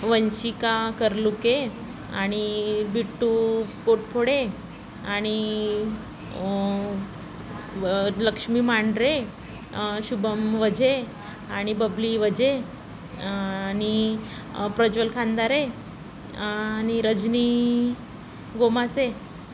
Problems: constant background noise, background conversations at intervals